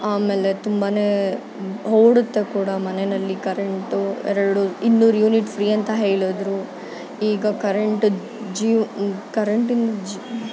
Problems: background sounds at intervals